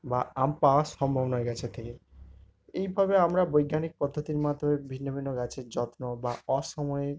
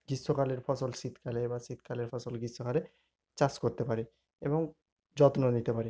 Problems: none marked